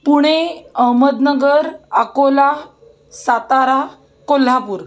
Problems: background sounds at intervals, background conversations at intervals